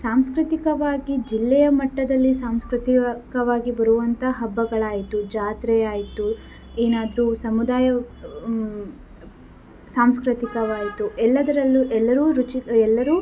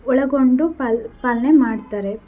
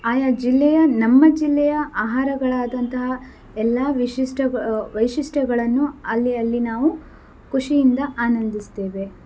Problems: none marked